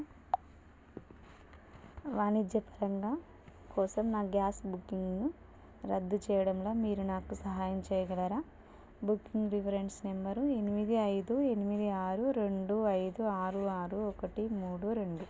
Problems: none marked